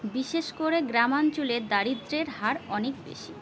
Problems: constant background noise